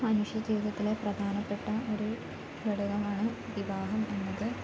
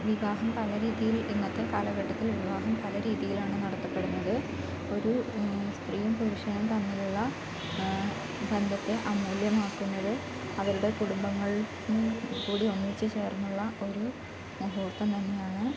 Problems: constant background noise